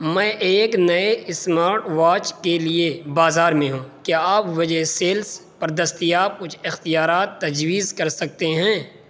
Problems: none marked